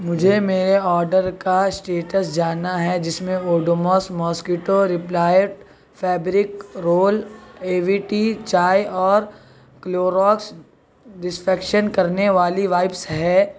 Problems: constant background noise, background conversations at intervals